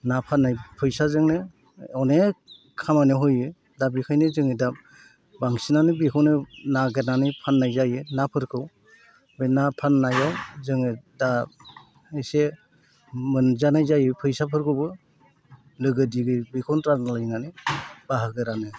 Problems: constant background noise